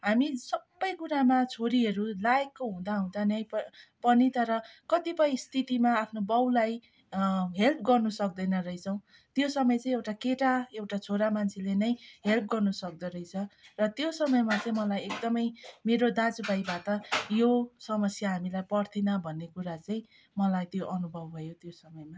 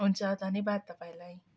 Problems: background sounds at intervals, background conversations at intervals